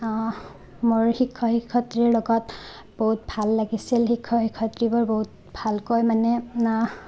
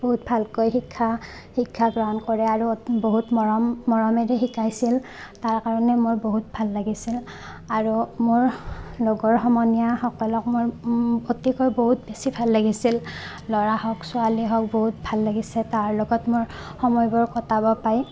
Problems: background sounds at intervals